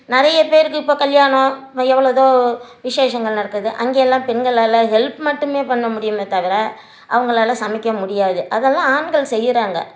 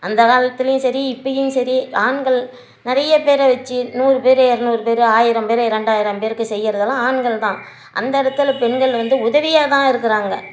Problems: none marked